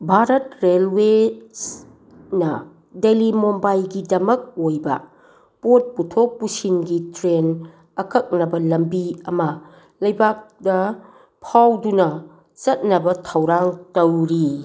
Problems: none marked